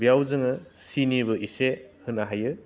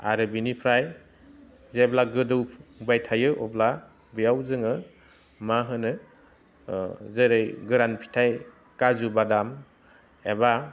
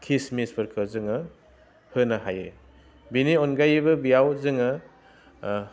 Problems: low volume